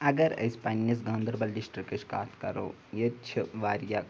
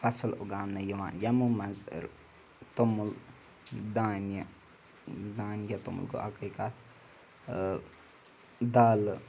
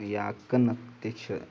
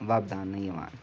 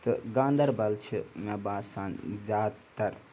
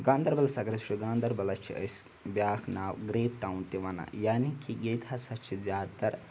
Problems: background sounds at intervals